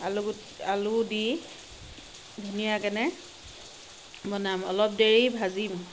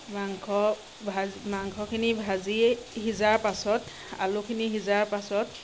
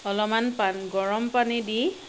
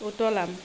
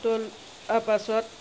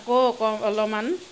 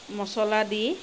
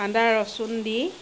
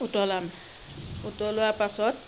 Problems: constant background noise